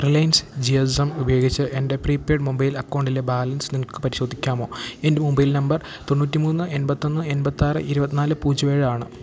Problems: none marked